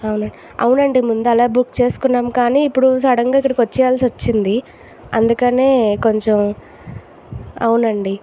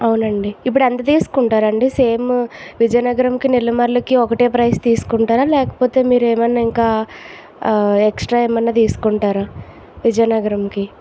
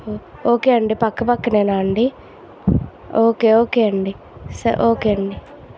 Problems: constant background noise